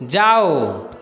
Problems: continuous background conversations